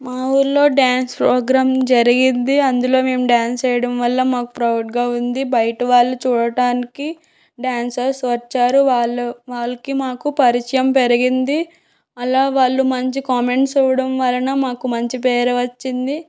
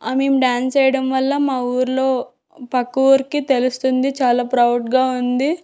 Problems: none marked